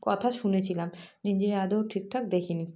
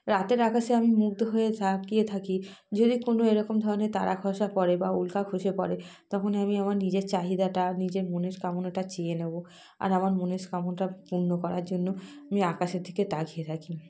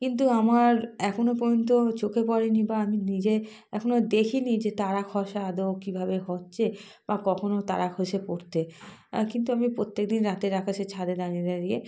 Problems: constant background noise